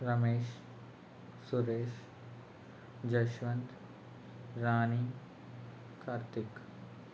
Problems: constant background noise, low volume